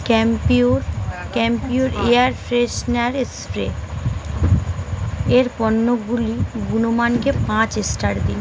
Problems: constant background noise